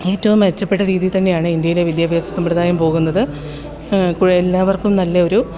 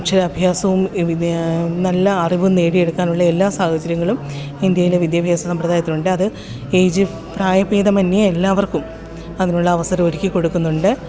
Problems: constant background noise